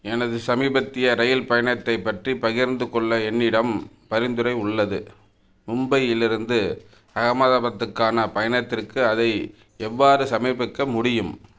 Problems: none marked